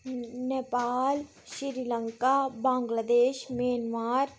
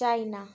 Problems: none marked